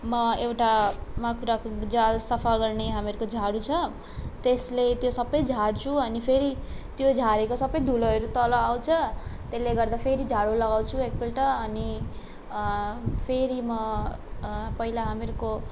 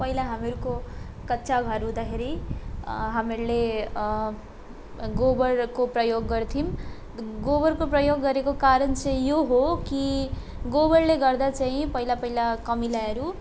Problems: background sounds at intervals